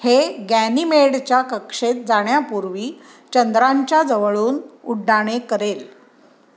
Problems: background sounds at intervals